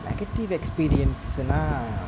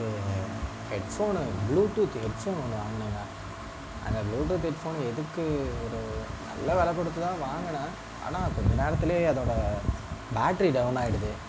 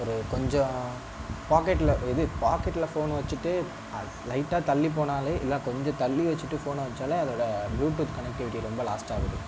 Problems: constant background noise, low volume